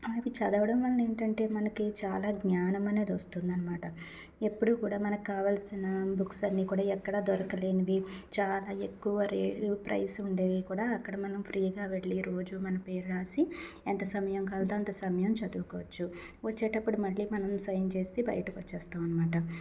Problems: background sounds at intervals